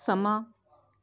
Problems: background conversations at intervals